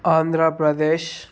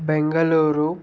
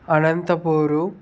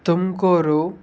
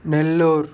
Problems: constant background noise